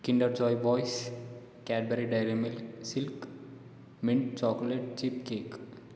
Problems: none marked